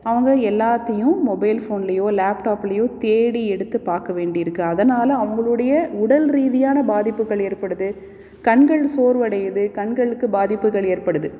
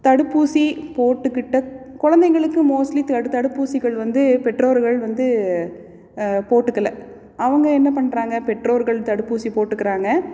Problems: none marked